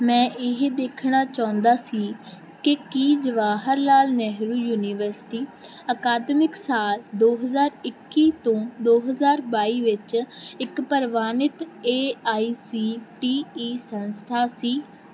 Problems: background sounds at intervals